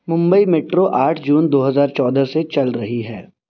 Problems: constant background noise